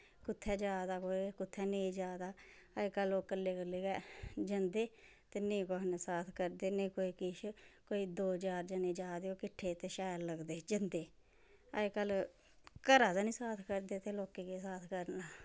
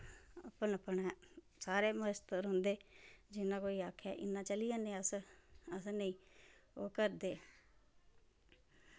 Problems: background sounds at intervals